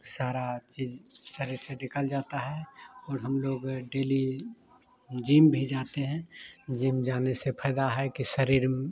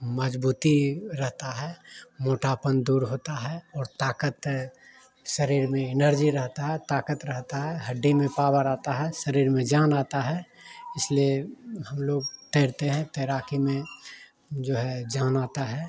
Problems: background sounds at intervals